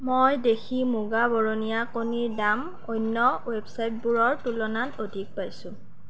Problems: none marked